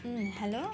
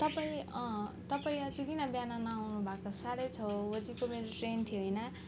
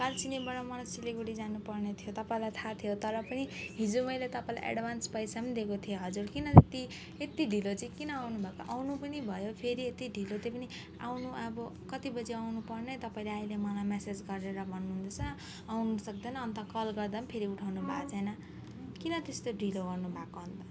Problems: background sounds at intervals